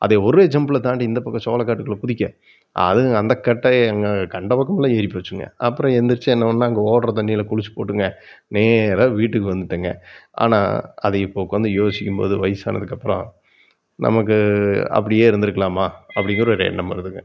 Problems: background sounds at intervals